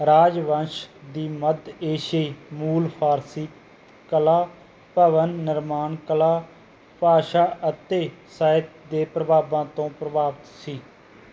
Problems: background sounds at intervals